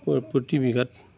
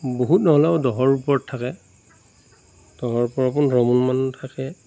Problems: constant background noise